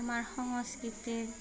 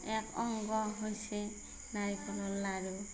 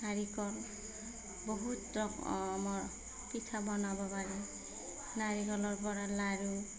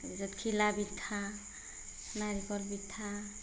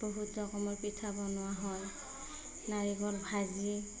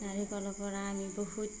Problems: background sounds at intervals, background conversations at intervals